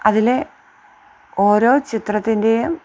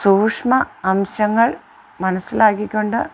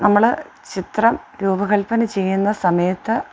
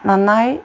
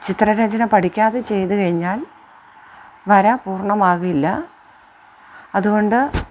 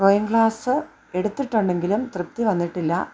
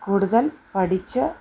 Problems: background sounds at intervals